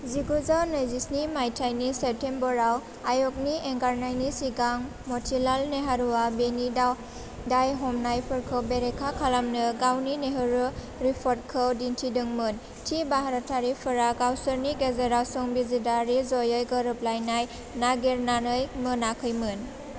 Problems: constant background noise